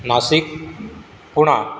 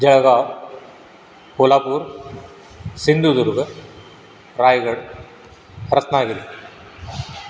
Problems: constant background noise, background conversations at intervals